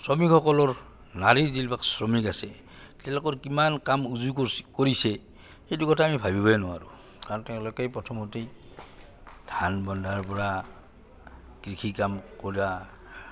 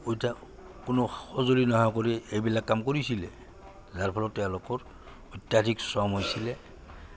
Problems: low volume